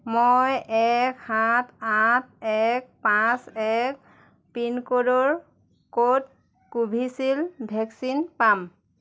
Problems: none marked